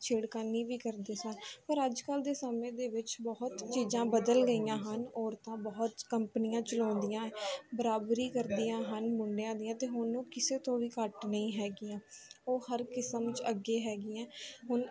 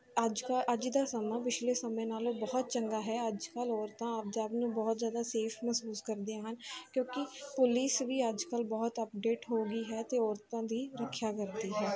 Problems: background sounds at intervals, background conversations at intervals